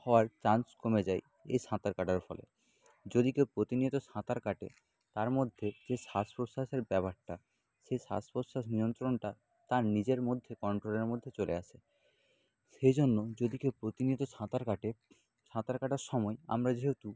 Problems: none marked